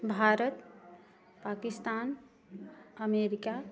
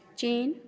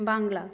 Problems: none marked